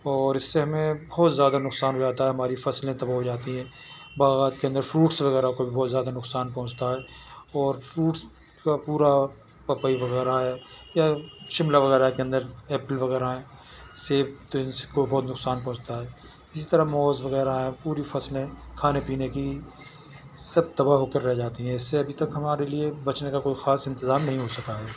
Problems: none marked